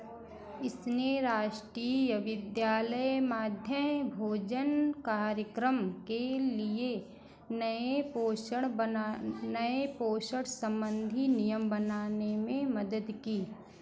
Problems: background sounds at intervals